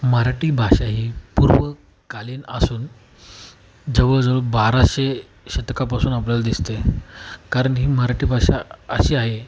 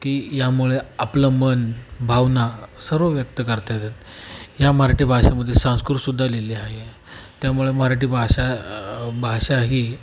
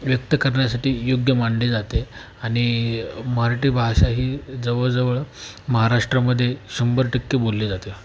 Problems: constant background noise